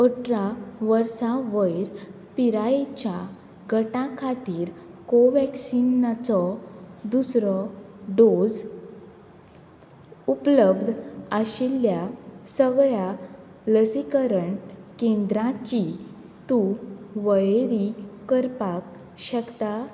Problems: constant background noise